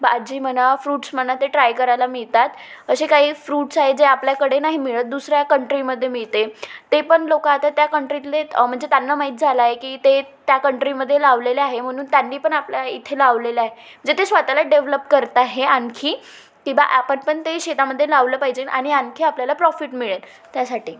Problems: background sounds at intervals